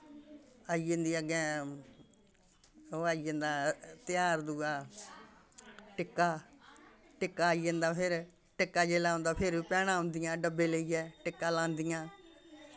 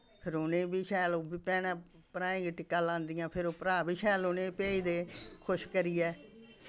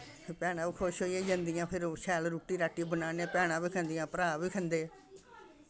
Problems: constant background noise, background conversations at intervals